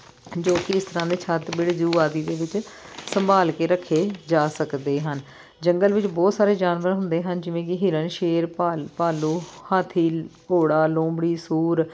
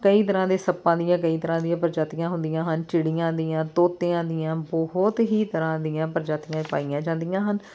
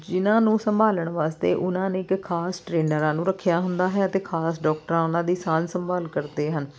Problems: background sounds at intervals